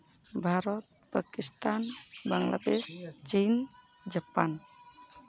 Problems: background sounds at intervals, background conversations at intervals